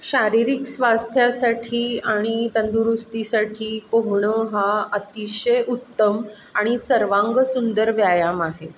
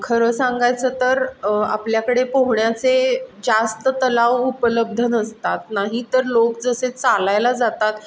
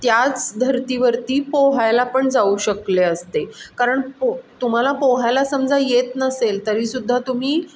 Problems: none marked